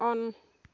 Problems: background sounds at intervals, background conversations at intervals